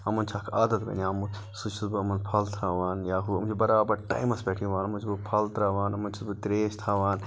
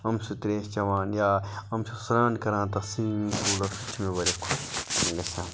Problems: constant background noise